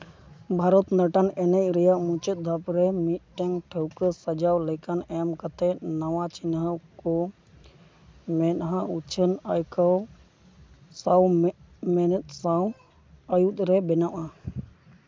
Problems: background sounds at intervals